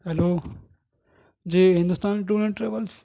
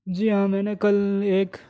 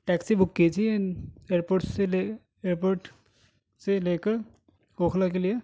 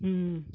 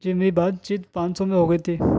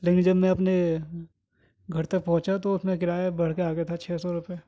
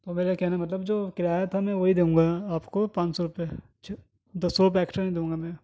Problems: none marked